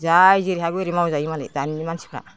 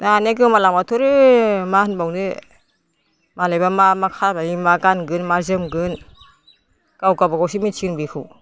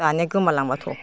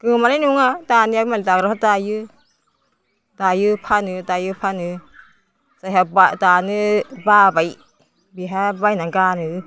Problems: constant background noise